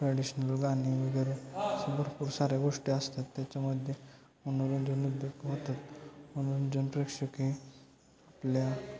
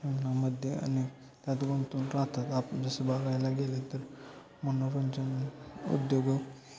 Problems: constant background noise, continuous background conversations